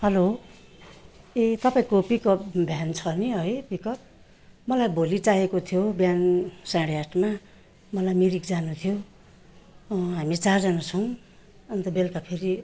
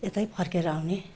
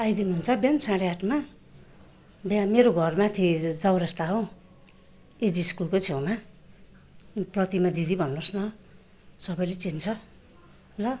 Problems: background sounds at intervals